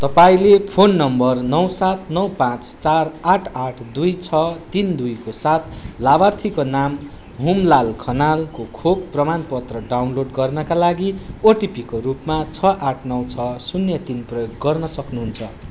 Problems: none marked